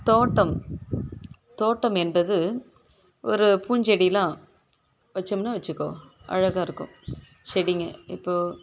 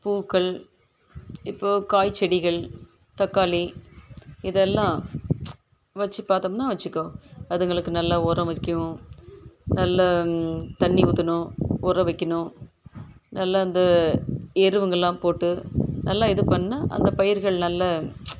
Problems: background sounds at intervals